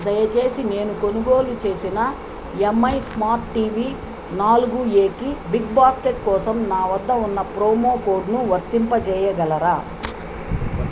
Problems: constant background noise